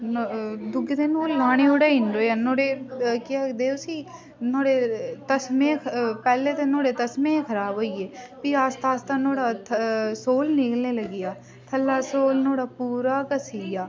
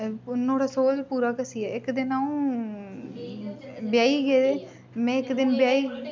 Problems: constant background noise, background conversations at intervals